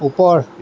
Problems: constant background noise, background conversations at intervals